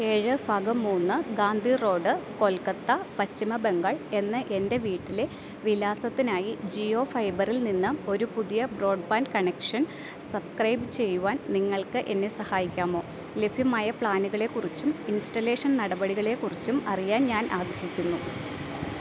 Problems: none marked